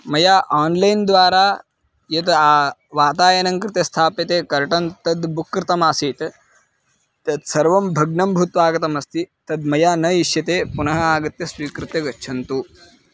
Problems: background sounds at intervals